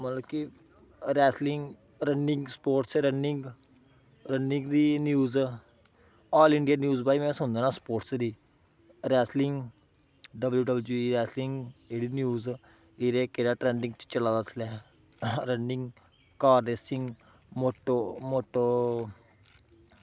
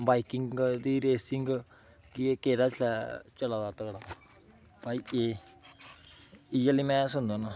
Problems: background sounds at intervals